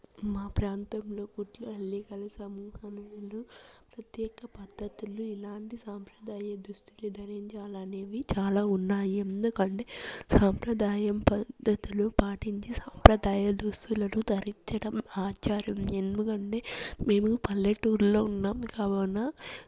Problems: constant background noise, low volume